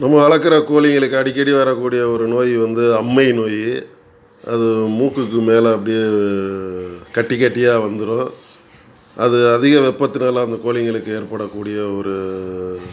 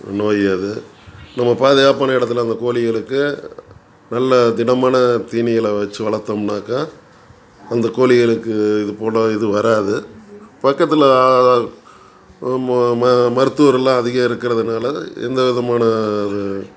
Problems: background conversations at intervals